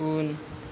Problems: constant background noise